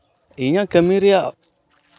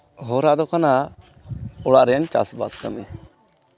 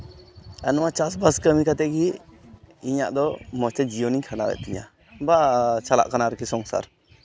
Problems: background sounds at intervals